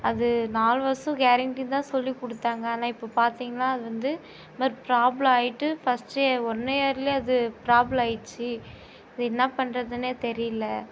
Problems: constant background noise